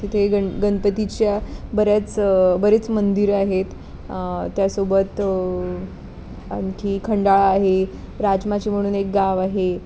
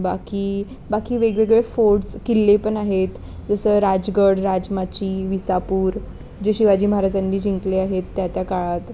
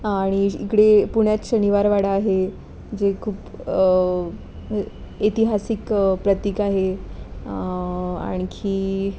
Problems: constant background noise